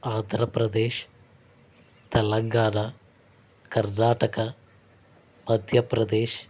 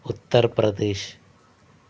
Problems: constant background noise